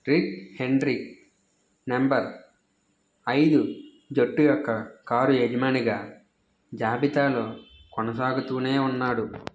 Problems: constant background noise